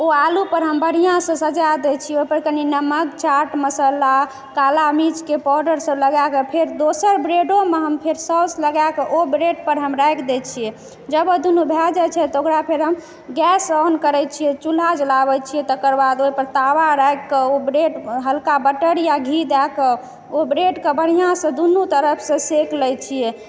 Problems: background sounds at intervals, background conversations at intervals